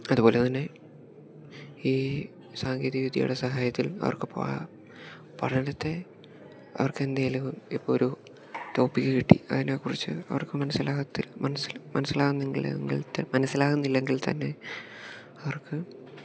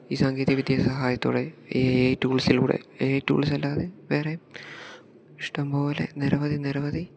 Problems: background sounds at intervals, low volume